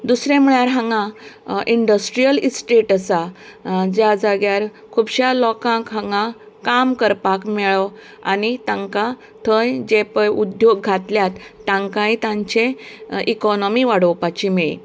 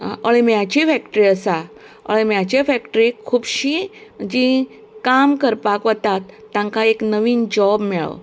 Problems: background sounds at intervals